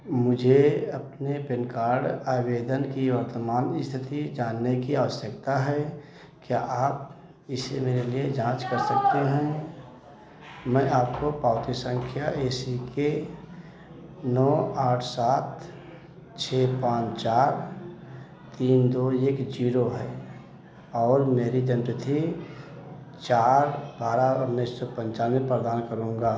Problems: background conversations at intervals